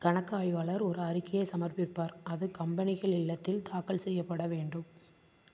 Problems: constant background noise